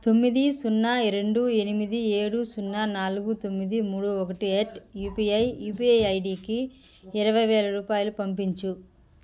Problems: constant background noise